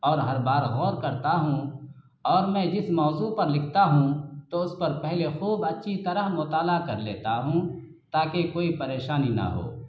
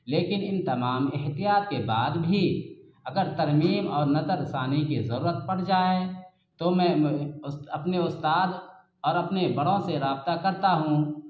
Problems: constant background noise